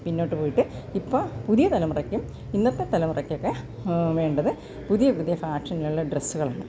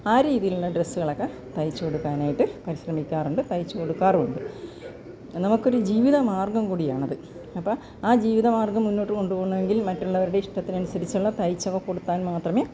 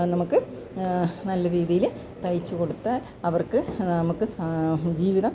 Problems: none marked